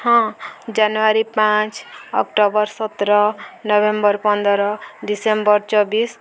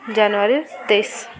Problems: constant background noise